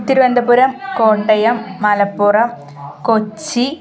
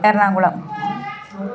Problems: none marked